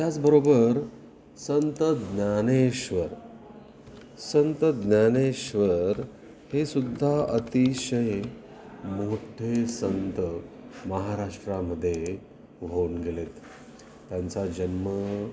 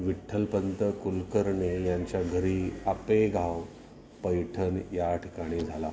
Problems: constant background noise, continuous background conversations